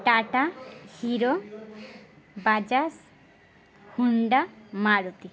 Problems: constant background noise, background conversations at intervals